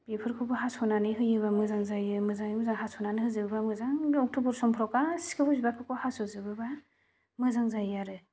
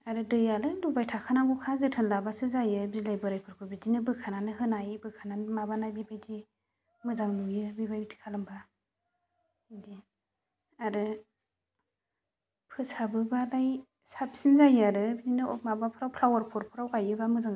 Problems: none marked